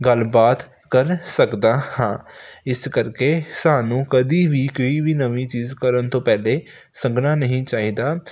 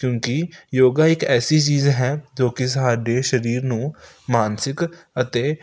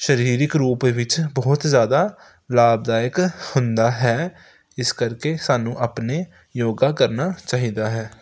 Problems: none marked